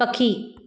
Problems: none marked